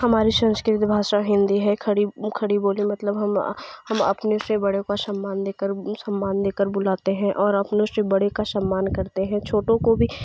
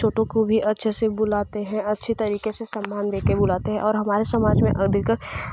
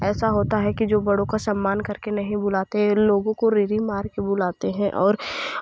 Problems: none marked